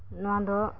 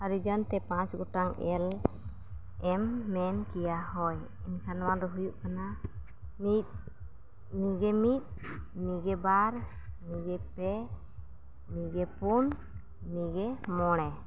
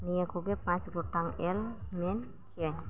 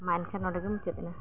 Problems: none marked